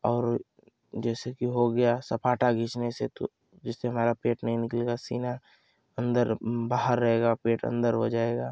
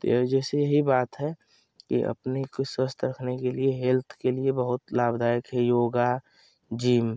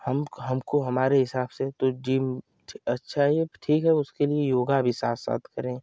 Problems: constant background noise